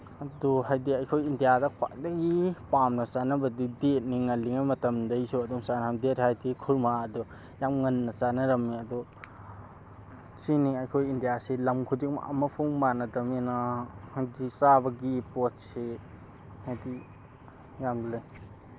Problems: constant background noise